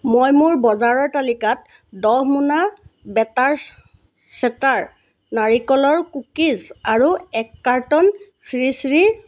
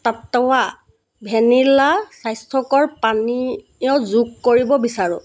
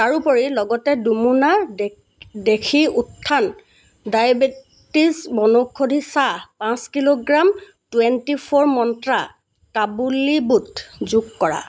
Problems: constant background noise